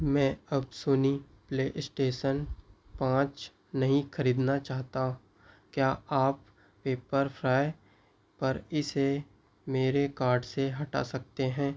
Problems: none marked